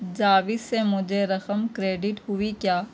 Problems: constant background noise